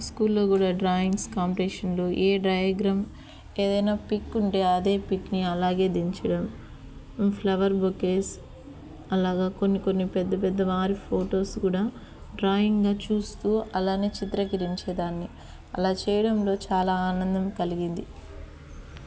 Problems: none marked